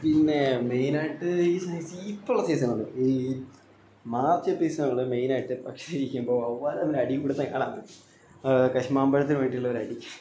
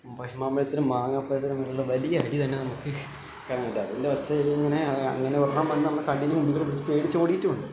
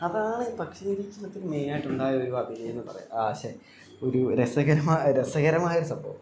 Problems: constant background noise, low volume